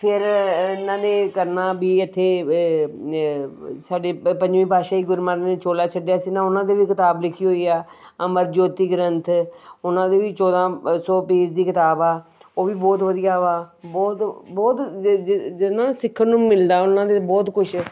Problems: background sounds at intervals